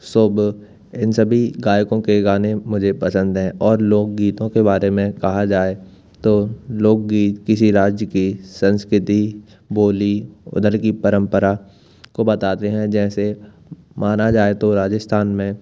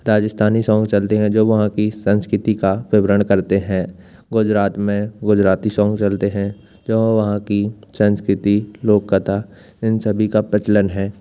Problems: none marked